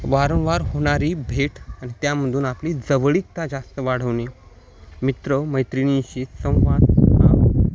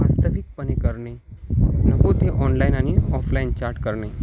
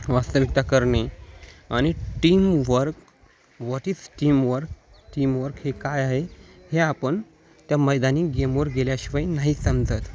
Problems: none marked